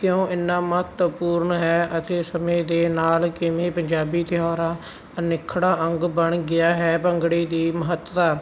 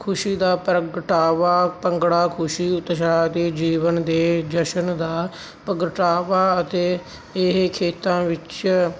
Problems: background sounds at intervals